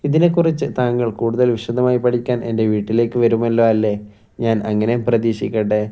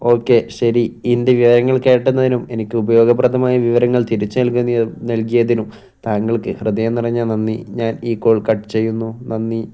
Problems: none marked